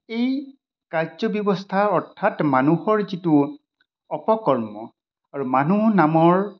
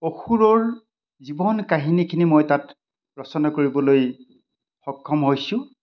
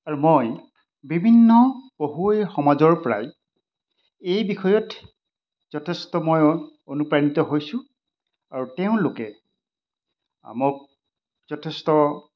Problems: none marked